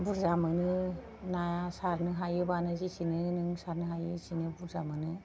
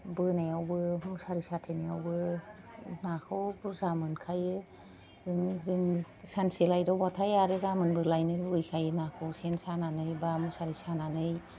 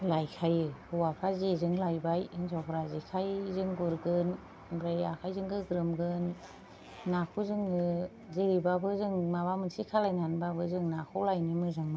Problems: none marked